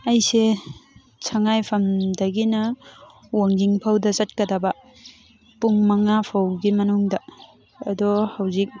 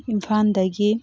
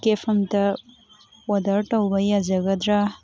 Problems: constant background noise, background conversations at intervals